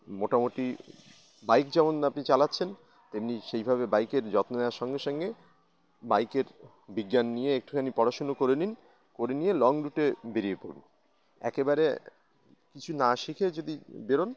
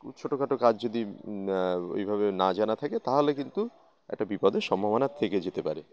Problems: background sounds at intervals, background conversations at intervals